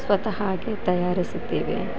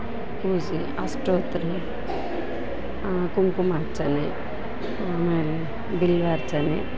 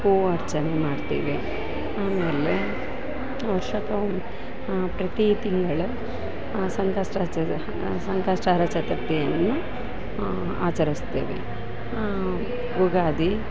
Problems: background sounds at intervals